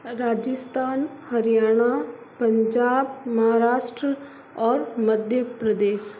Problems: constant background noise